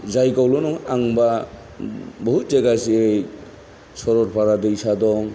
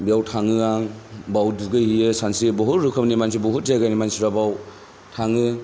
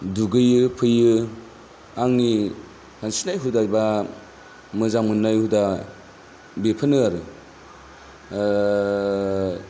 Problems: none marked